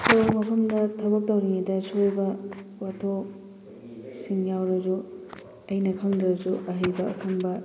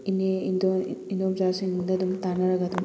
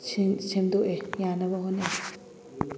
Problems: constant background noise, background conversations at intervals